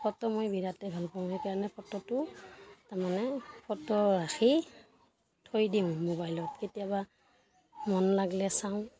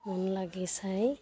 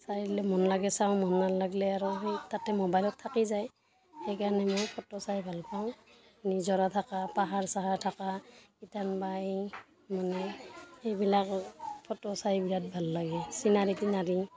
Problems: background sounds at intervals, continuous background conversations